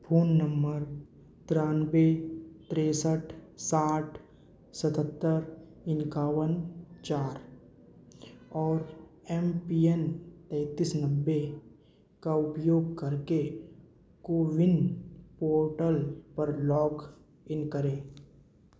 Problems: constant background noise, echo